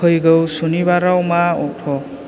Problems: constant background noise